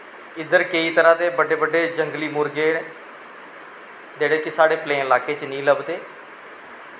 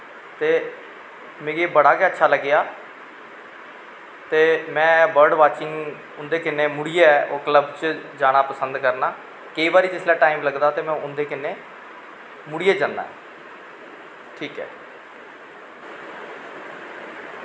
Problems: constant background noise